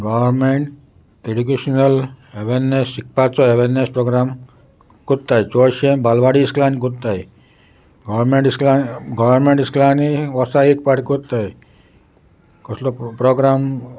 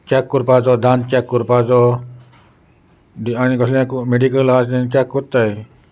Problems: constant background noise, background conversations at intervals